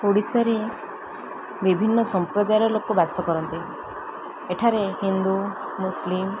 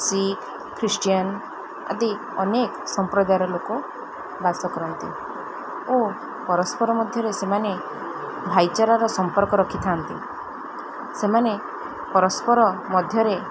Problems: constant background noise